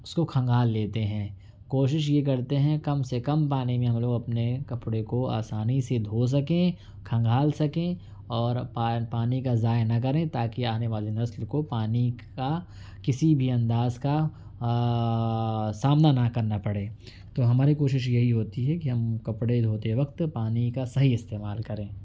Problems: none marked